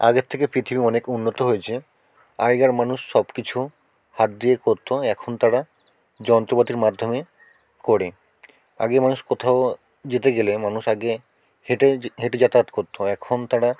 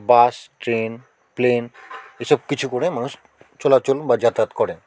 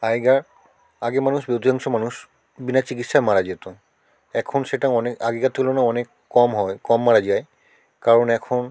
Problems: background conversations at intervals